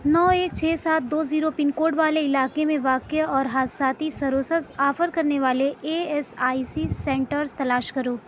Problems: constant background noise